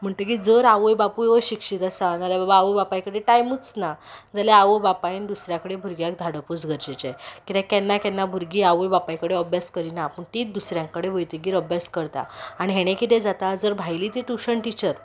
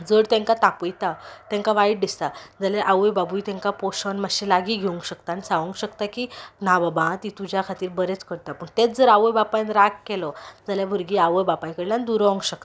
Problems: background sounds at intervals